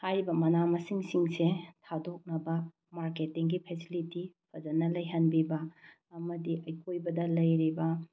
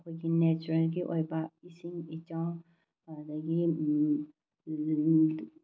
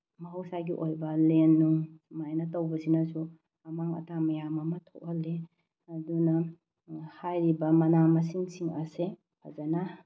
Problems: low volume